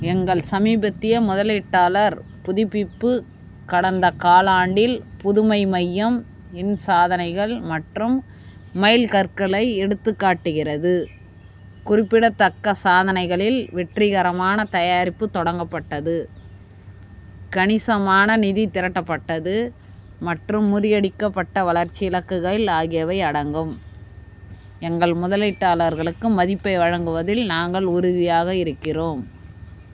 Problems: constant background noise